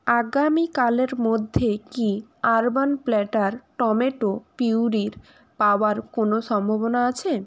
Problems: none marked